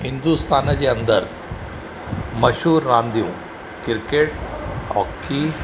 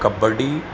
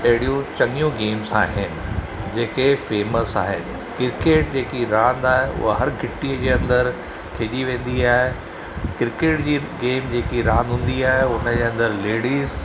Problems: none marked